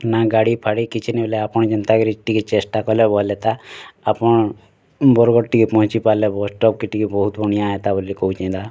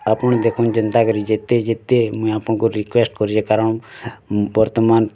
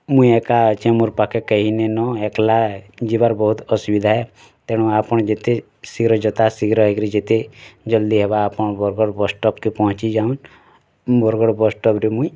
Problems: constant background noise